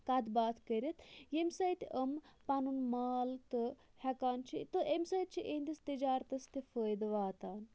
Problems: constant background noise, low volume